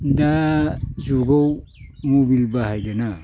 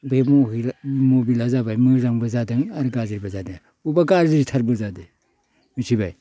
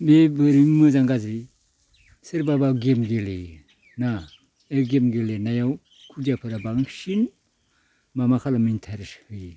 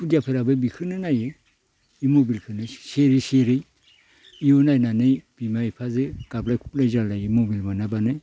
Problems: none marked